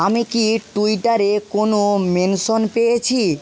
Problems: constant background noise